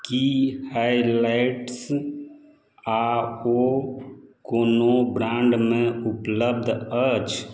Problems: none marked